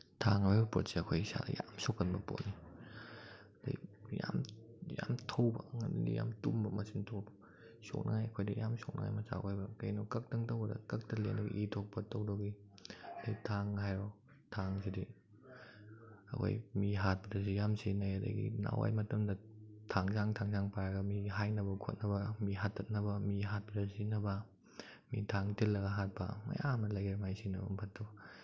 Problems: background sounds at intervals